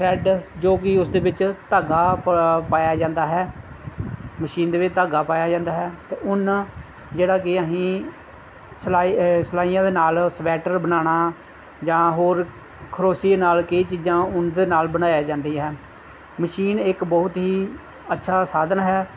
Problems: background sounds at intervals